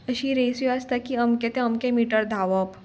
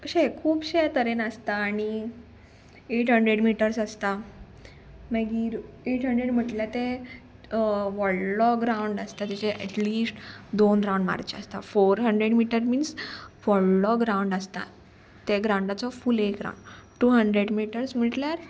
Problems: background sounds at intervals